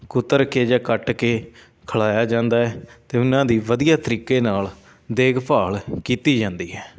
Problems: constant background noise, background conversations at intervals